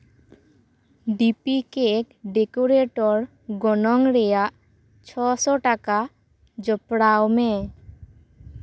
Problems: background sounds at intervals